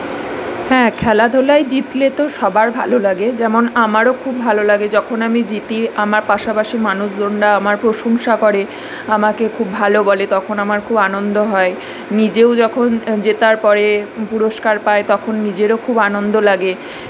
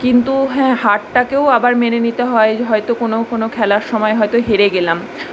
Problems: none marked